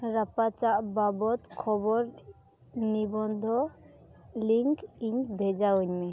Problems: constant background noise